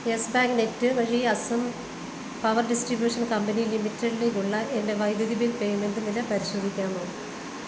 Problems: constant background noise